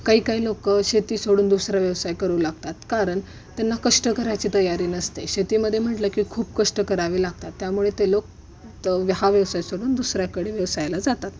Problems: none marked